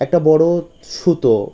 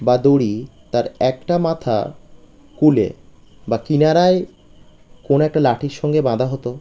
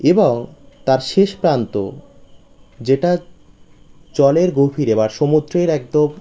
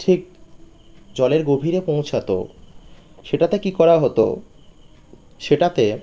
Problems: none marked